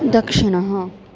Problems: constant background noise